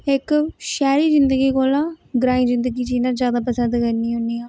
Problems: none marked